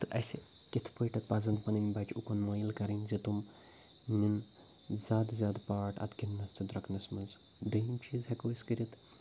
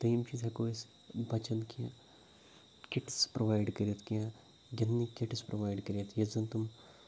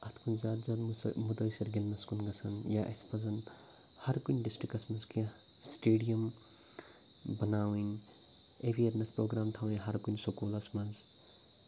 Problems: none marked